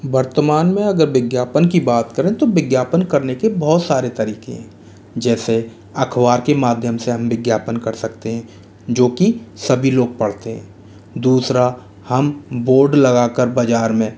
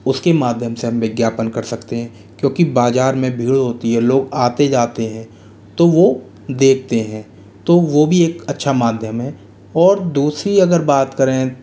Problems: constant background noise